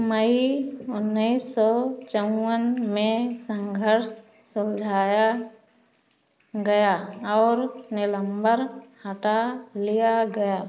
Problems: constant background noise